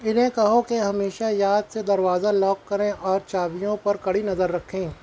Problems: constant background noise